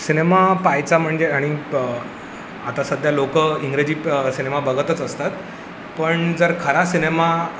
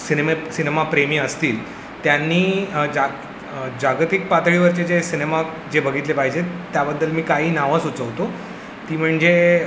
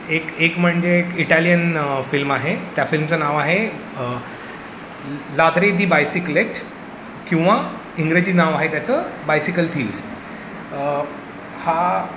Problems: background sounds at intervals